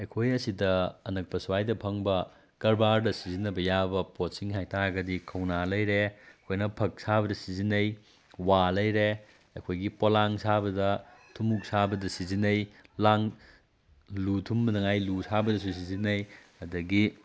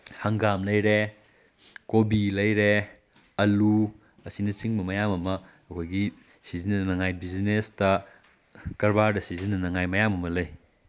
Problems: background sounds at intervals